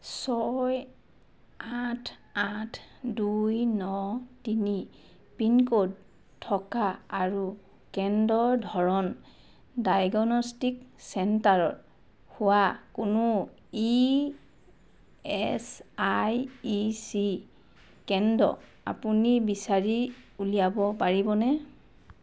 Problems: background sounds at intervals